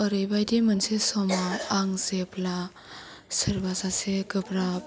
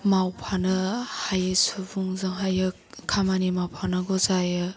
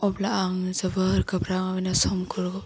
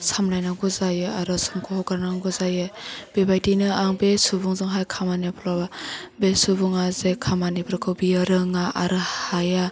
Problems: background sounds at intervals